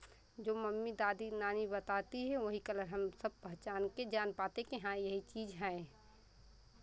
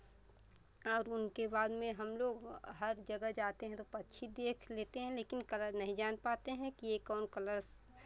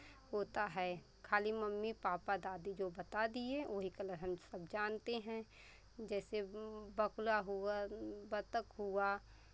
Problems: constant background noise, background conversations at intervals